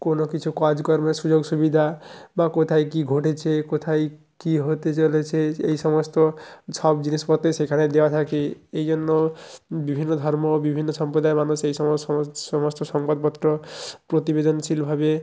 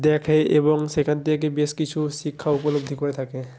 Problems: background sounds at intervals